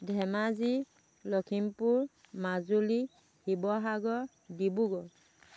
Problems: background sounds at intervals